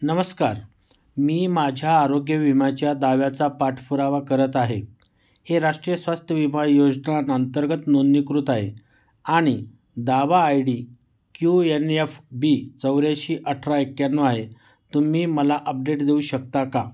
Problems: background sounds at intervals